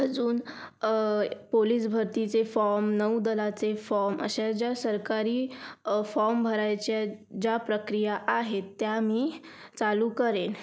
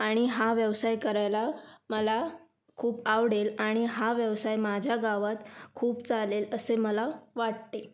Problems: background sounds at intervals